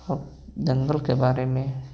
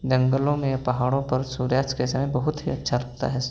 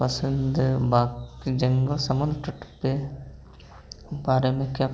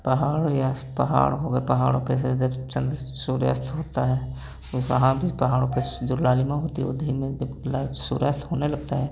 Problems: background sounds at intervals, background conversations at intervals